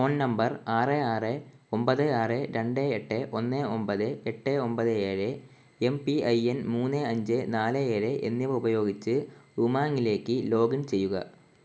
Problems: constant background noise